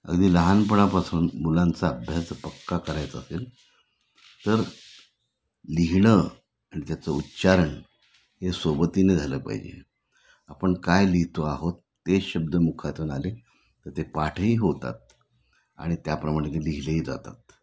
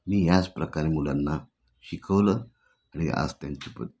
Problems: none marked